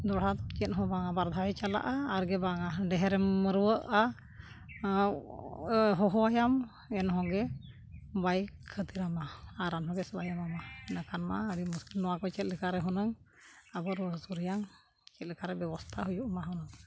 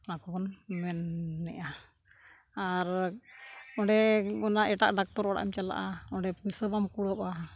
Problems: background sounds at intervals